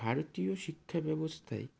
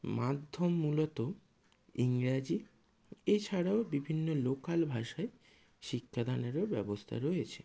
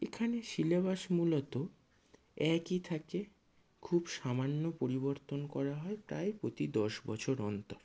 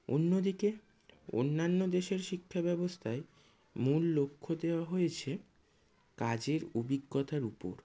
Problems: low volume